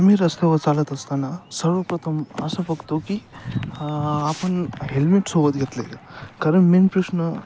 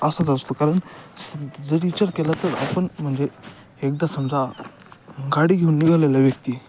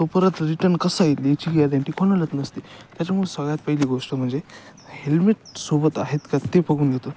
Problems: none marked